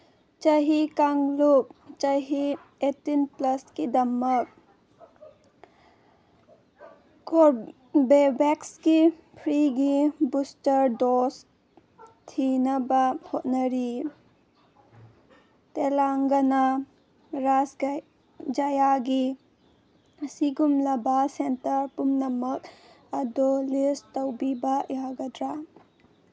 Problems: background sounds at intervals